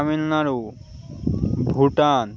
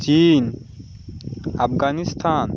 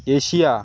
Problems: constant background noise